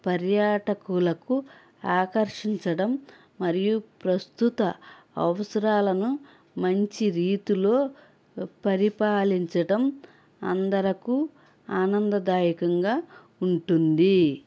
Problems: none marked